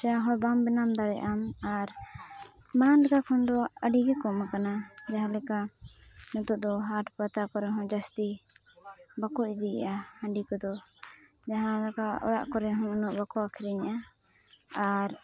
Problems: constant background noise, low volume